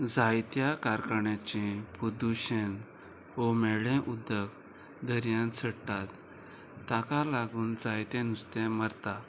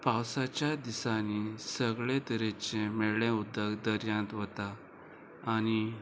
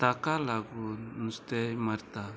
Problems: constant background noise